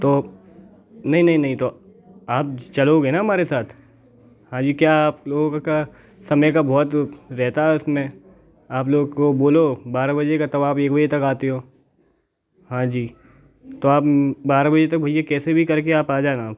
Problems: background sounds at intervals, background conversations at intervals